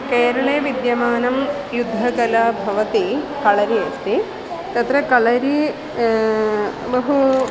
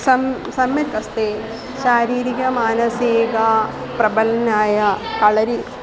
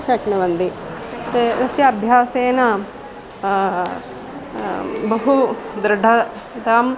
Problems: constant background noise